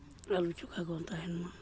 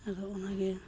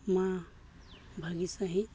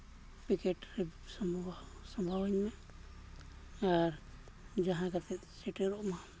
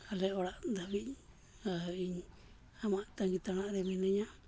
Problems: background sounds at intervals, low volume